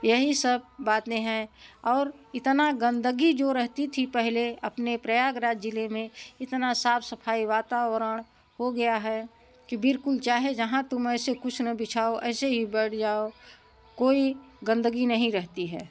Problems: none marked